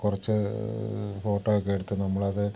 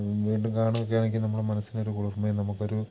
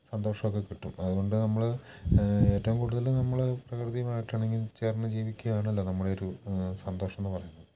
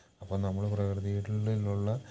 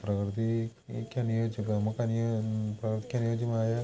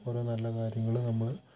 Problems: none marked